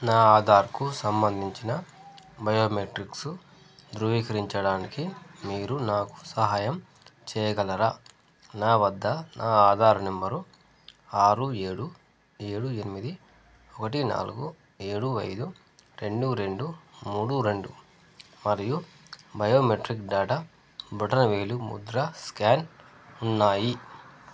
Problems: none marked